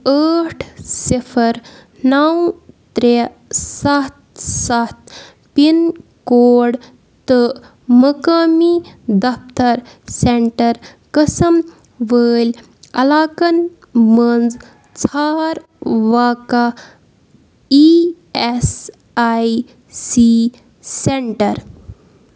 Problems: background sounds at intervals